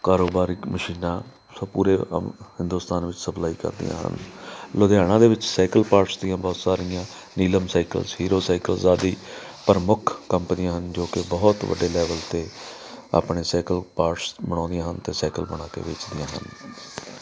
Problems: background sounds at intervals, background conversations at intervals